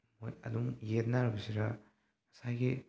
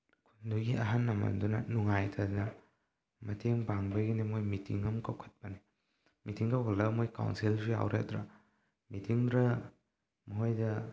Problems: low volume